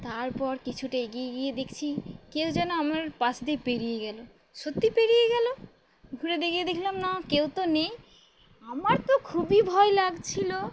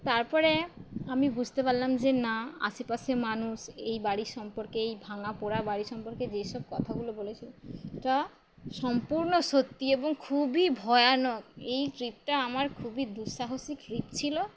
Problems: constant background noise